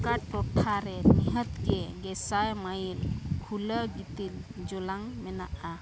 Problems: constant background noise, continuous background conversations